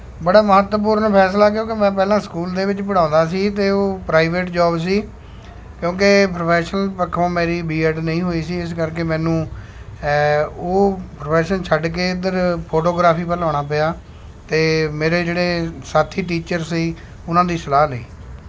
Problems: none marked